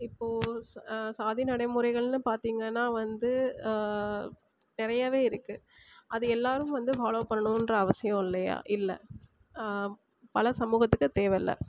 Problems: constant background noise